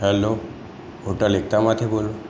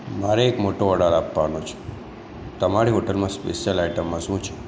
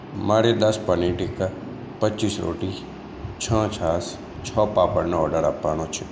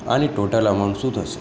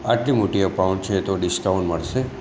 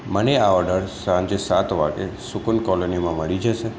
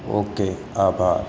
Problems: background sounds at intervals